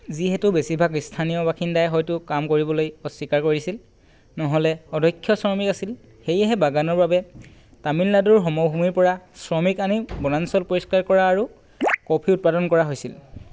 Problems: background sounds at intervals